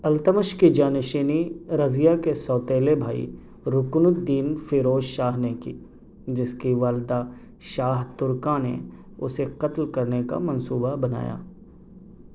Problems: none marked